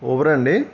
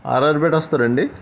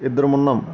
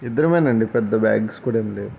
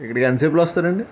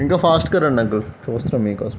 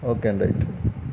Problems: constant background noise